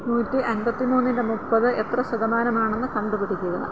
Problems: constant background noise